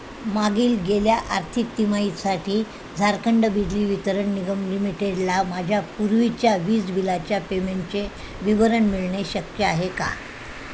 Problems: constant background noise